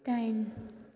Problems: constant background noise